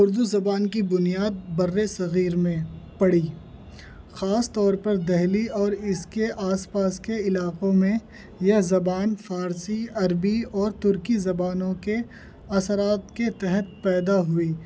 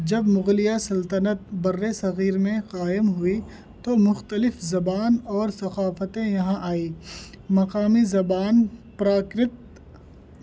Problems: background sounds at intervals